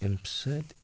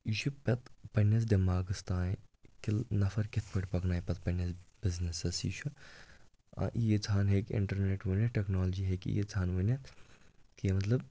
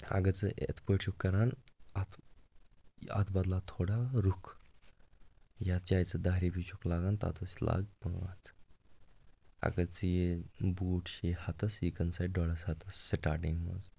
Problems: none marked